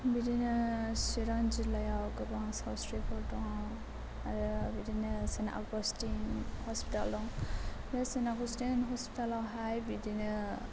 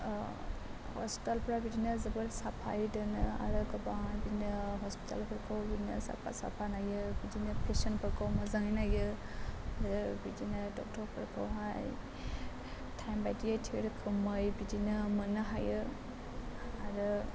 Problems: constant background noise, low volume